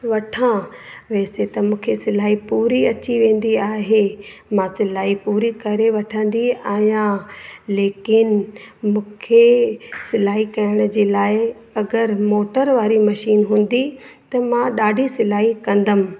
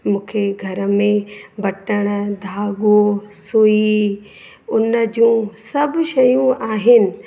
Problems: constant background noise, echo